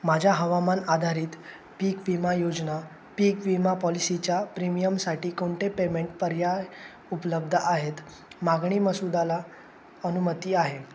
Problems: constant background noise